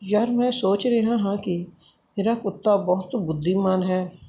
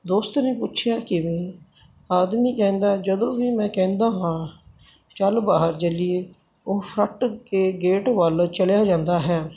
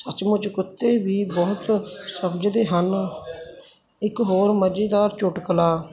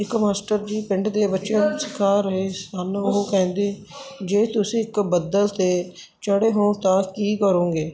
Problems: background sounds at intervals